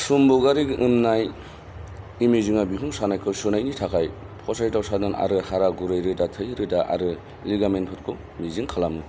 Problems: none marked